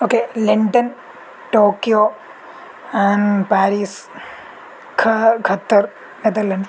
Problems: constant background noise